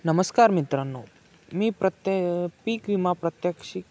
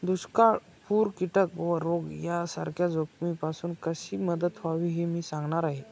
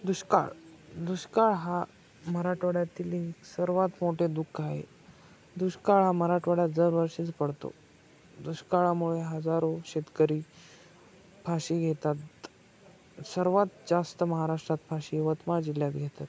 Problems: constant background noise, background conversations at intervals